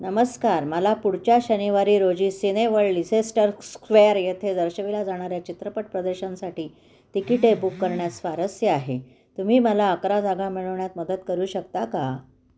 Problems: constant background noise, echo